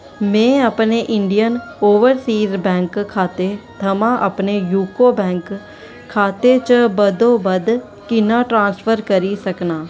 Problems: constant background noise